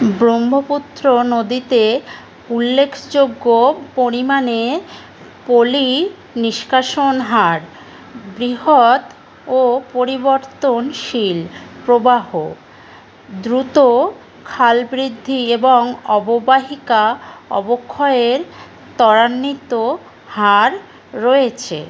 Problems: none marked